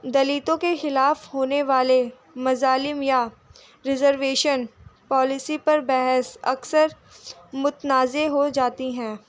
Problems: none marked